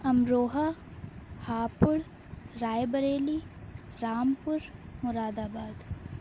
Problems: none marked